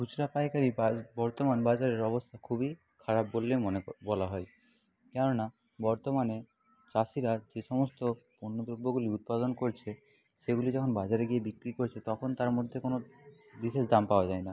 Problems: background sounds at intervals, background conversations at intervals